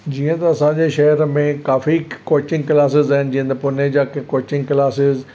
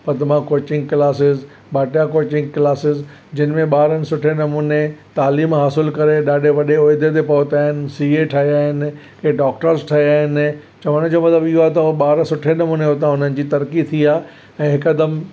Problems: none marked